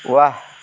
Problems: constant background noise